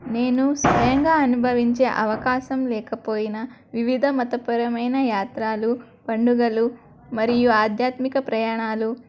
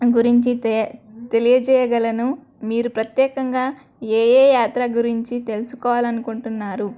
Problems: background sounds at intervals, background conversations at intervals